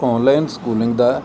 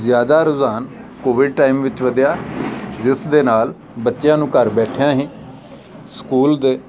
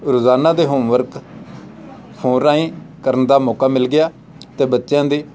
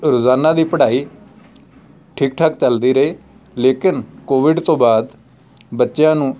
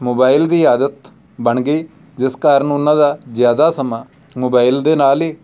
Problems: background sounds at intervals, background conversations at intervals